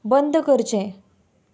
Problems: none marked